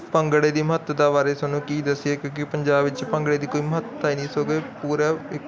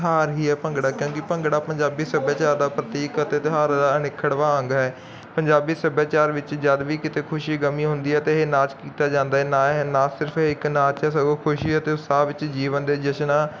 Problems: continuous background conversations